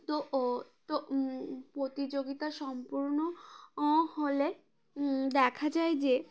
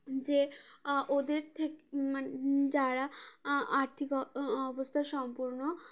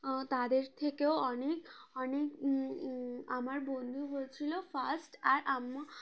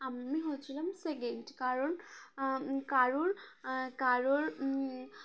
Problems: constant background noise, background conversations at intervals